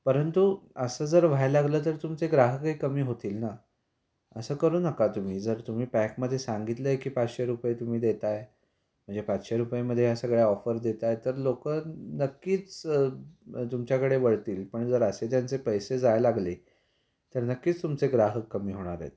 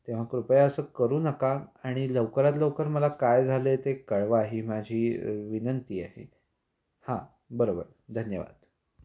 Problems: constant background noise